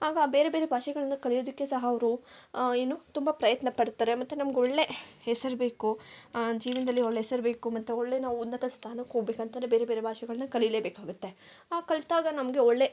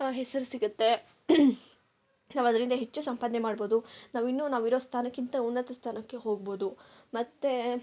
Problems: none marked